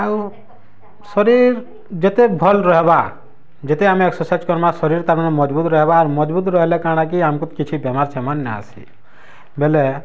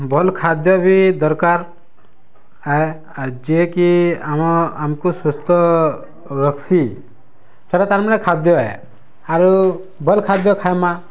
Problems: none marked